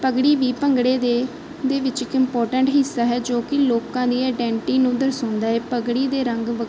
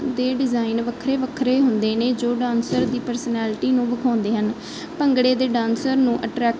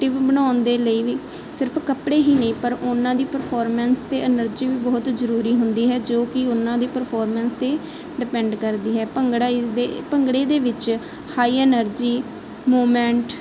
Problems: constant background noise